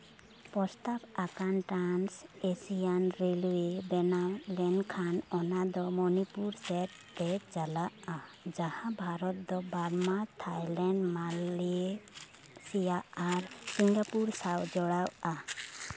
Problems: none marked